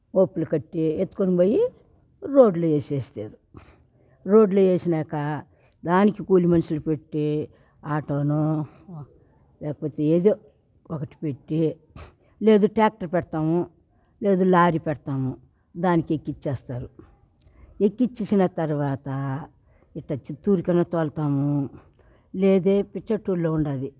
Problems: constant background noise, background conversations at intervals